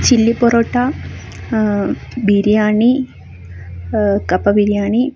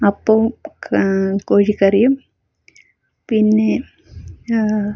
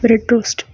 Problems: none marked